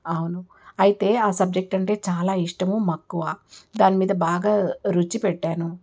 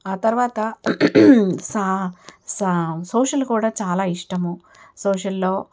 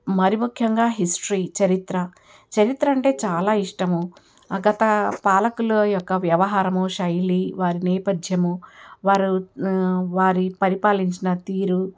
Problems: background sounds at intervals